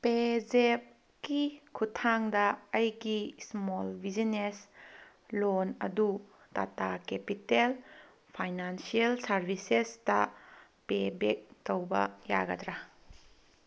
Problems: none marked